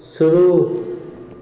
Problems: none marked